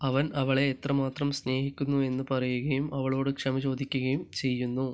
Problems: none marked